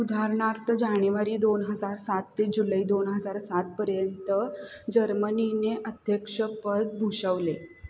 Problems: background sounds at intervals